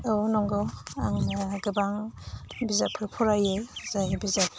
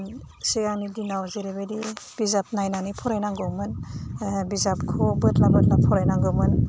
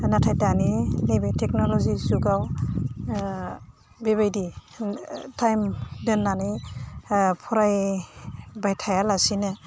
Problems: constant background noise